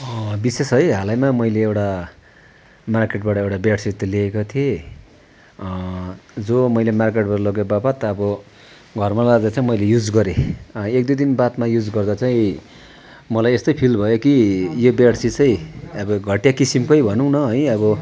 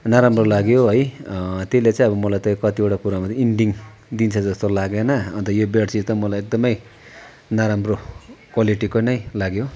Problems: constant background noise